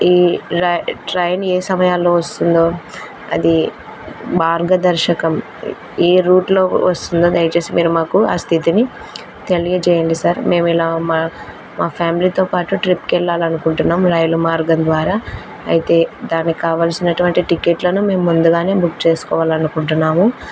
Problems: constant background noise